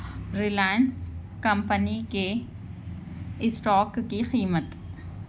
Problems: none marked